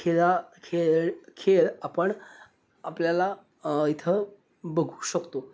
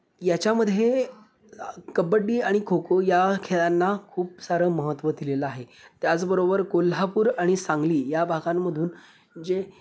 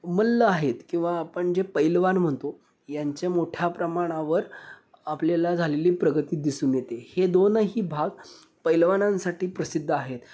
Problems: none marked